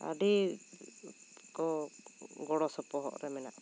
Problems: constant background noise